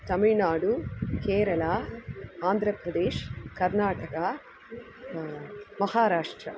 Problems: constant background noise